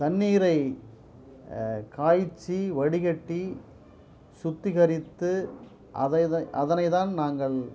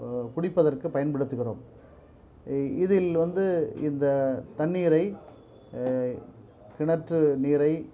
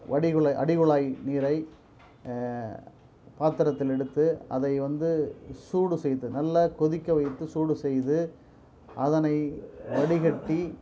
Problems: low volume